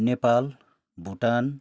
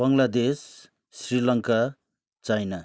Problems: background sounds at intervals